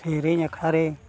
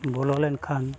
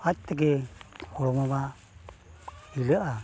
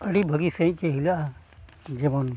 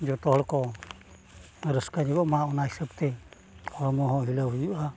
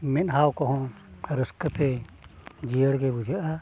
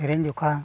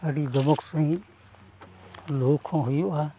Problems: background sounds at intervals